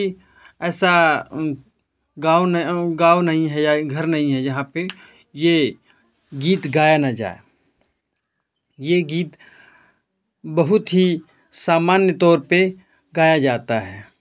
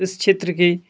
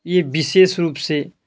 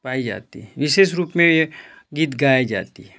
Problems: none marked